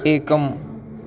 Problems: background sounds at intervals